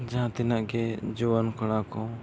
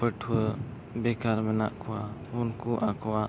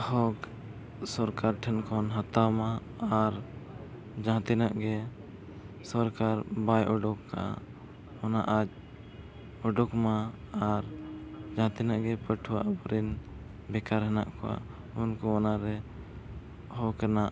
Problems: none marked